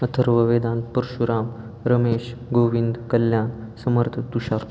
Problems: constant background noise